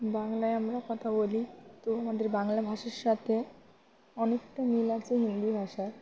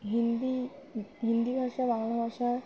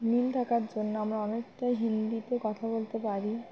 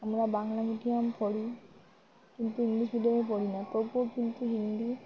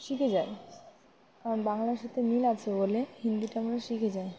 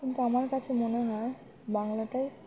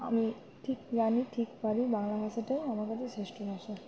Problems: constant background noise, background conversations at intervals